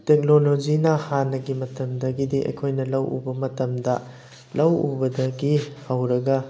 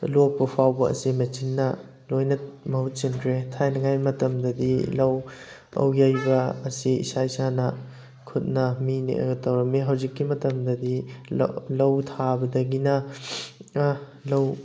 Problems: background sounds at intervals, background conversations at intervals